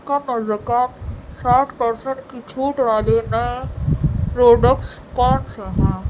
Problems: constant background noise